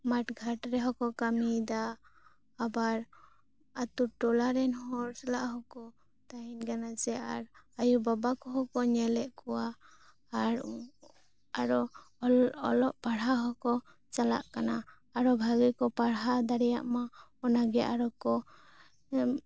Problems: none marked